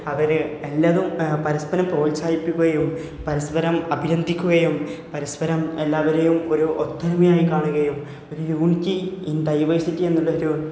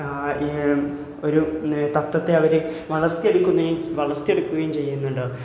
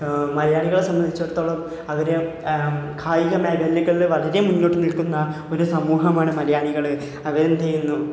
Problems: none marked